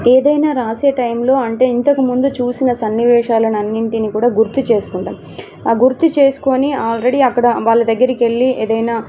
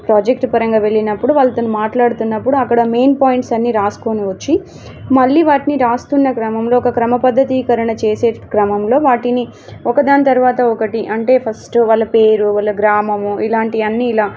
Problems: background sounds at intervals